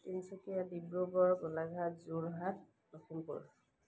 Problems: none marked